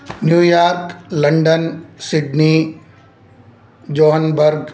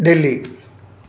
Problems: none marked